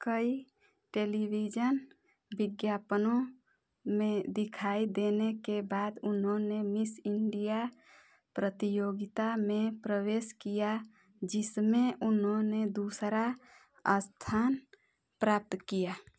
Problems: background sounds at intervals